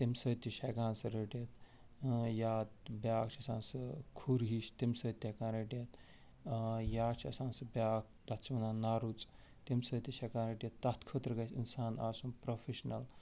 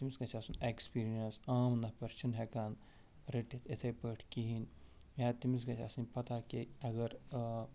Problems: none marked